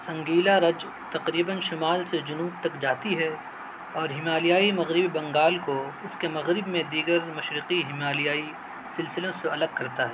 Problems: constant background noise